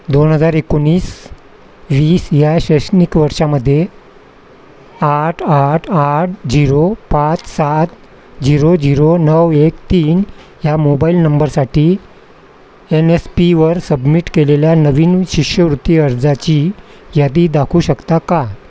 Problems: constant background noise